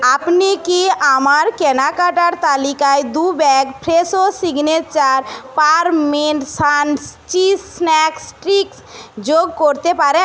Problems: background conversations at intervals